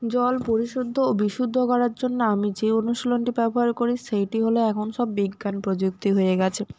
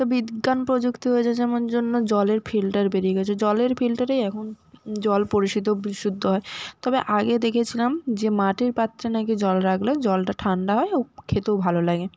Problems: constant background noise